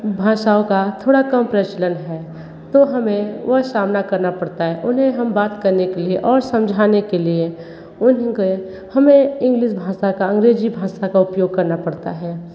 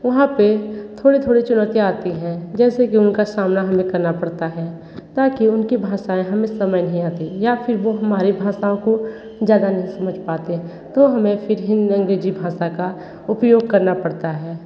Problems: constant background noise, background conversations at intervals